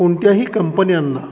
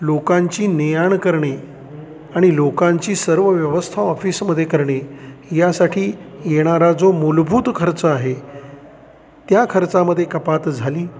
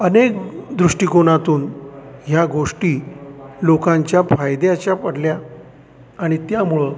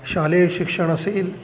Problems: constant background noise, continuous background conversations